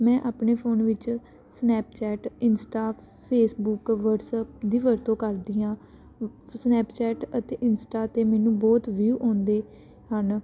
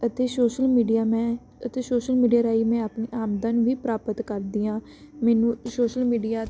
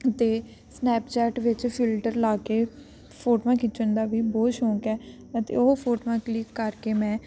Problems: constant background noise